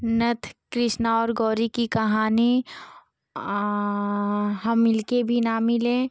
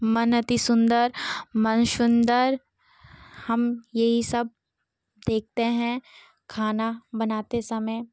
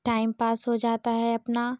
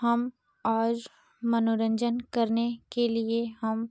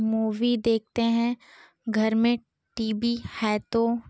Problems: none marked